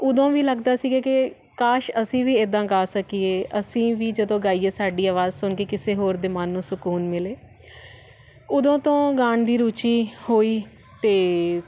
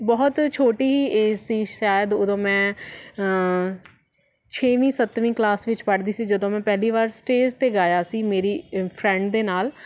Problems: none marked